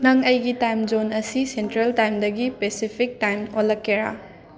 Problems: continuous background conversations